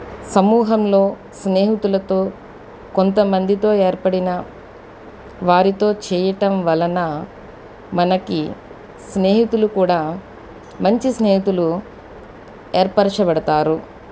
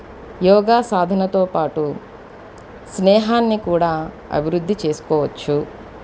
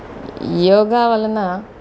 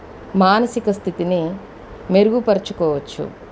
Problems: background conversations at intervals